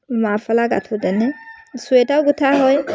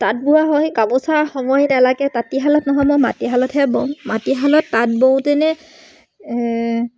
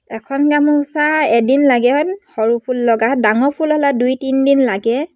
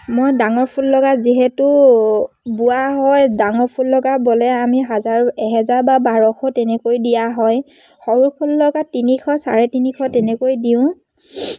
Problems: none marked